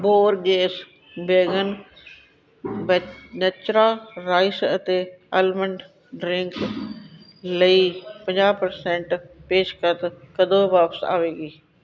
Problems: background sounds at intervals, background conversations at intervals